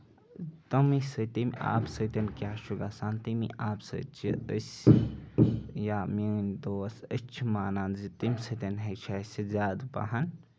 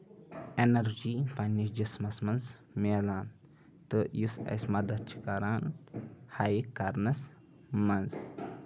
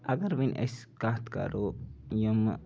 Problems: constant background noise, background conversations at intervals